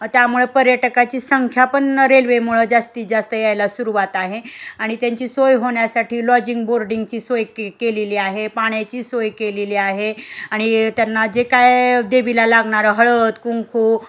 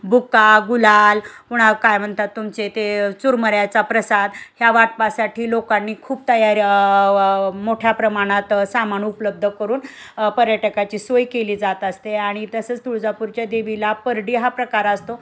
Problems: constant background noise, background conversations at intervals